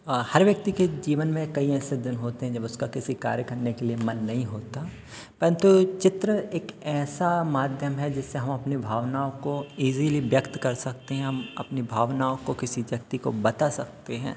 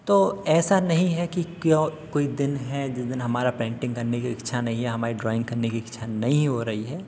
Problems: background sounds at intervals